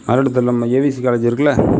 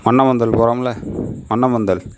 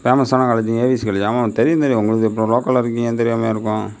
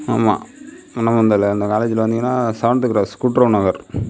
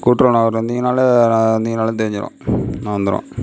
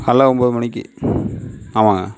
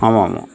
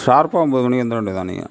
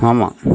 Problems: background sounds at intervals